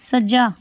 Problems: none marked